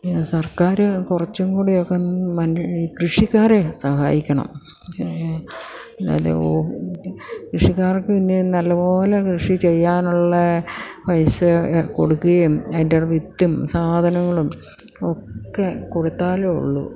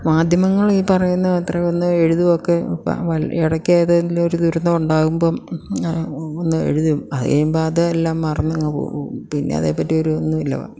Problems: none marked